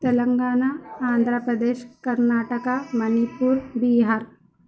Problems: constant background noise, low volume